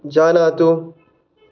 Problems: none marked